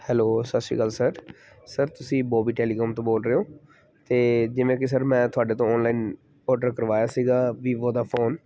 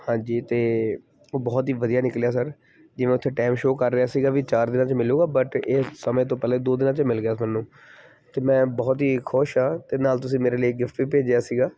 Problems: background sounds at intervals